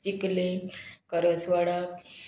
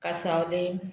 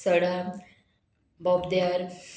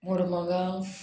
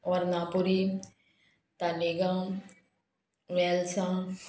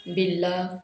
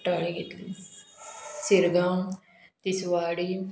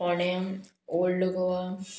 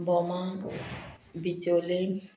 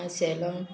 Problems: background sounds at intervals